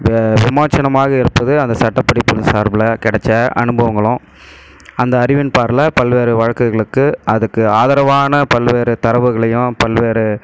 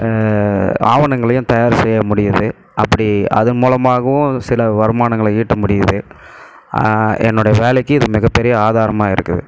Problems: none marked